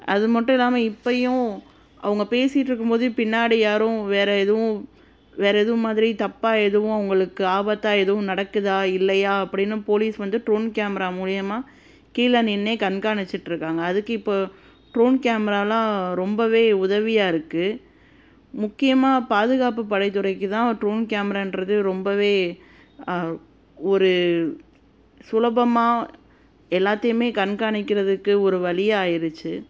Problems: constant background noise